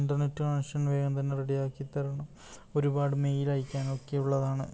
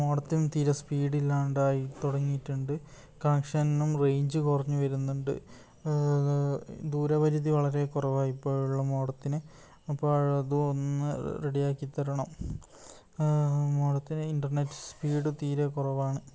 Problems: low volume